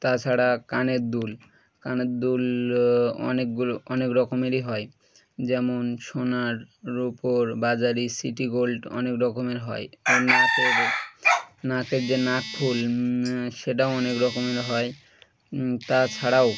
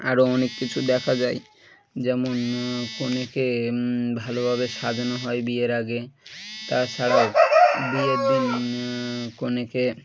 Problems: constant background noise